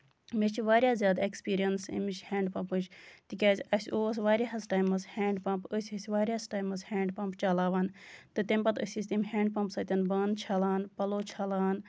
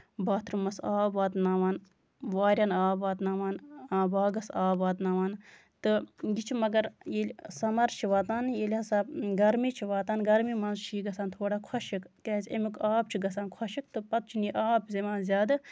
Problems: none marked